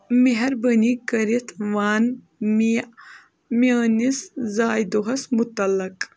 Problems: none marked